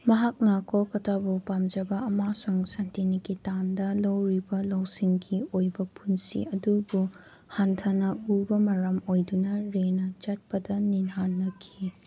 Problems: background sounds at intervals